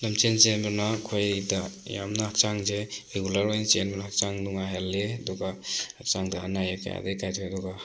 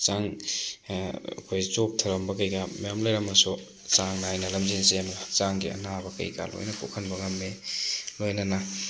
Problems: constant background noise